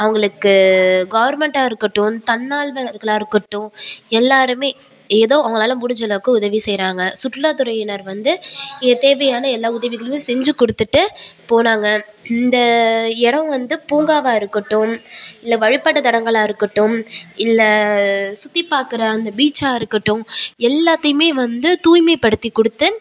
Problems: background sounds at intervals